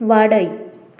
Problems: constant background noise